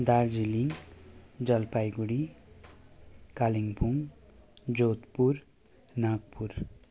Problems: none marked